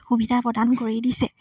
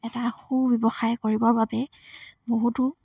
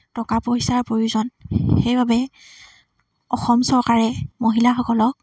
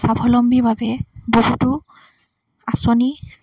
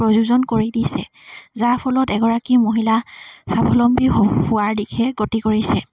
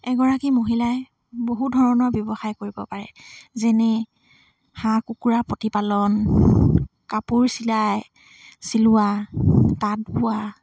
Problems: none marked